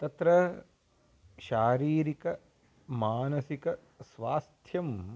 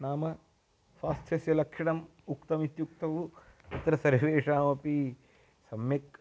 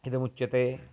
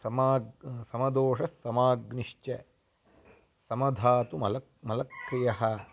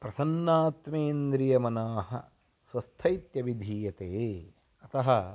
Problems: background sounds at intervals